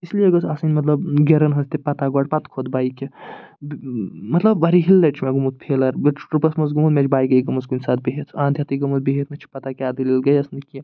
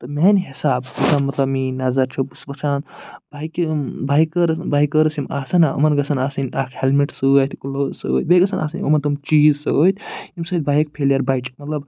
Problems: none marked